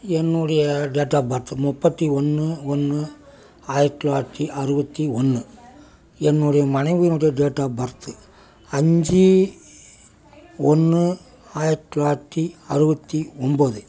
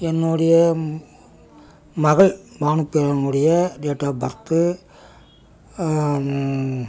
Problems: background sounds at intervals